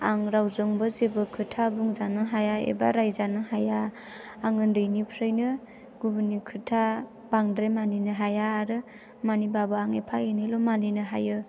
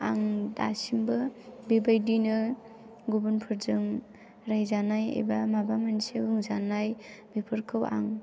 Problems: low volume